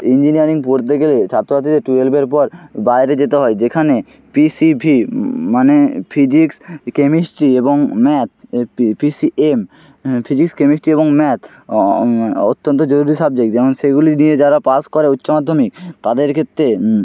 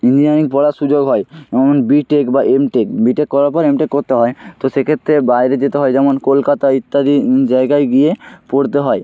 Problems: none marked